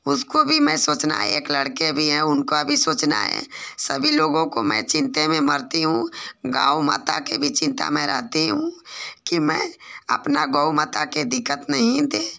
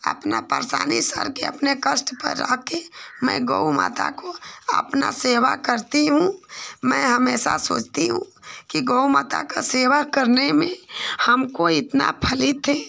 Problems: none marked